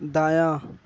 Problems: none marked